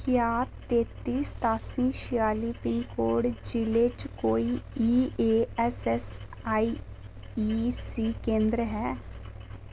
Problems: constant background noise